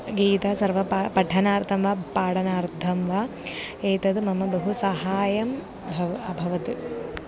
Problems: none marked